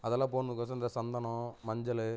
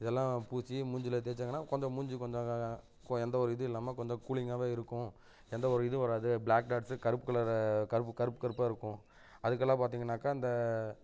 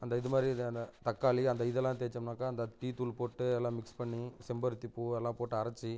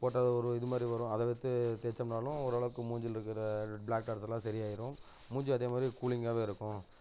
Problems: low volume